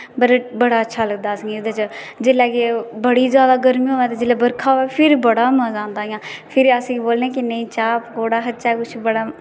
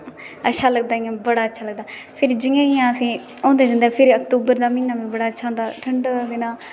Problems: constant background noise